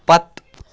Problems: background sounds at intervals